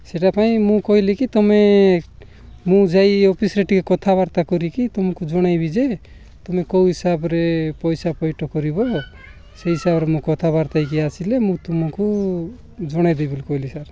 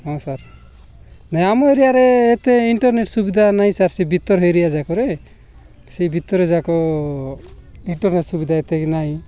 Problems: none marked